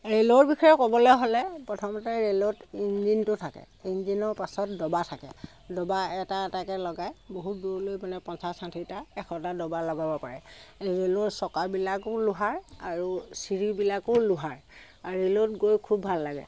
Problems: background sounds at intervals